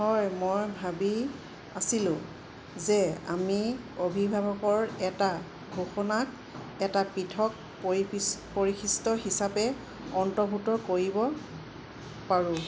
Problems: constant background noise